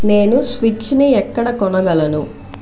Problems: constant background noise, background conversations at intervals